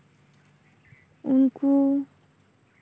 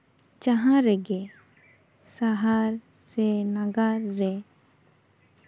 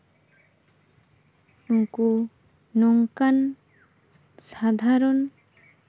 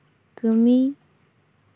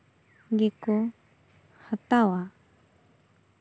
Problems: constant background noise